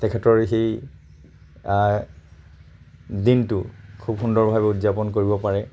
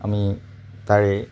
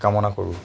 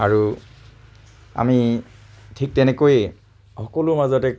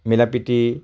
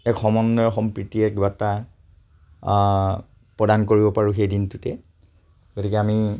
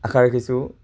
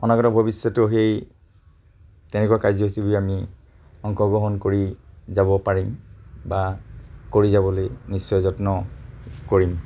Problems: constant background noise